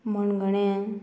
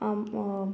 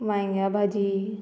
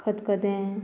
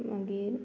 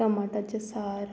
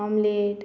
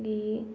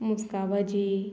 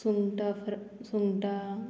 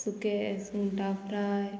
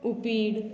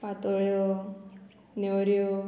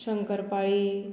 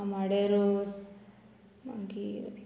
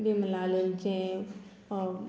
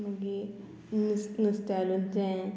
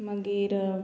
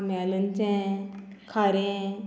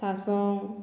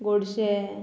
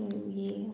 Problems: constant background noise